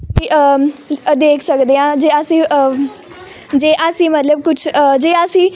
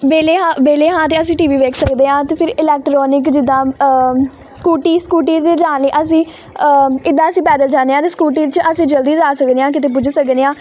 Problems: background sounds at intervals